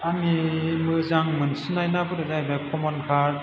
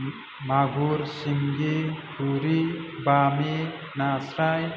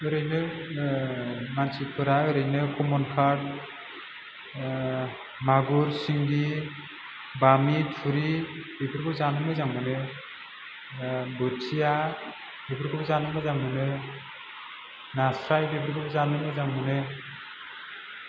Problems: low volume